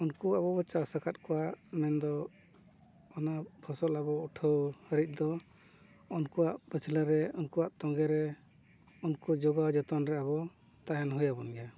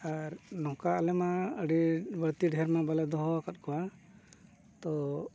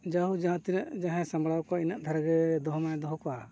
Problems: none marked